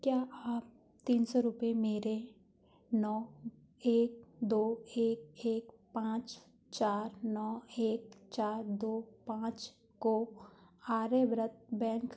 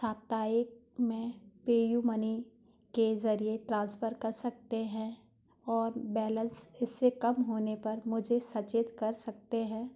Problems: background sounds at intervals